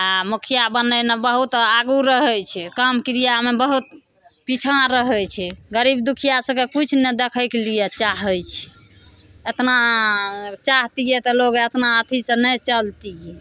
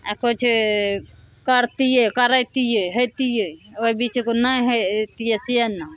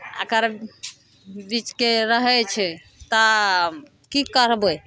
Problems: none marked